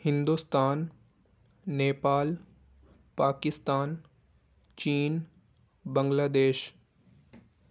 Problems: background sounds at intervals